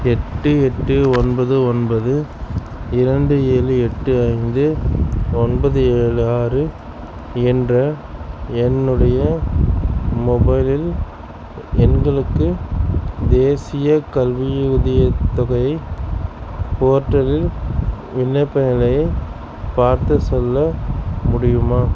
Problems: none marked